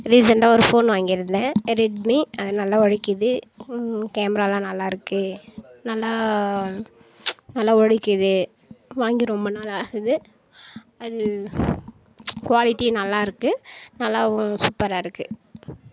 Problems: none marked